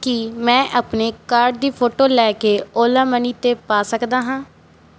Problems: background sounds at intervals